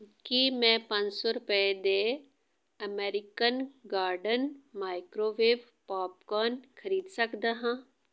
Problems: background conversations at intervals